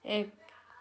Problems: background conversations at intervals